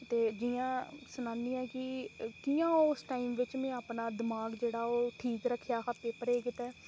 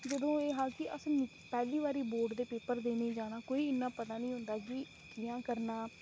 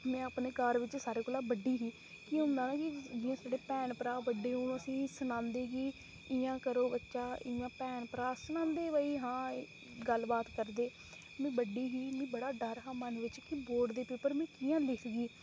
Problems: constant background noise, low volume